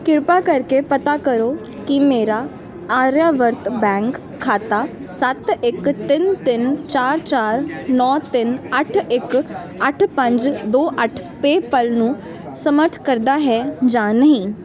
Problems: constant background noise